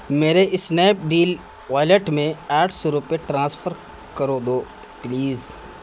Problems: constant background noise